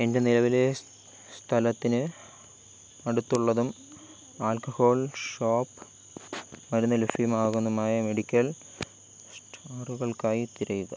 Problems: constant background noise